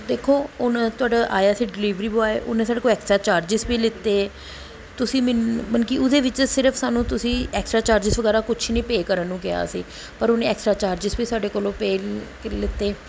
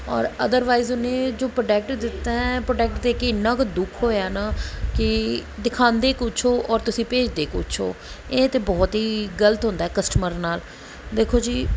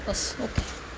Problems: constant background noise